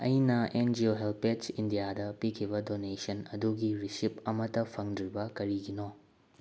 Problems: low volume